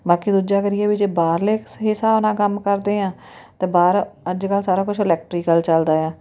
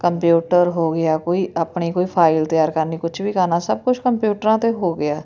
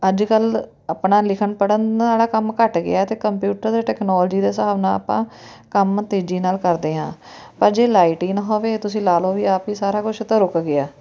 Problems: none marked